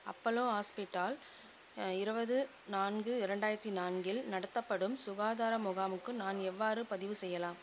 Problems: constant background noise, low volume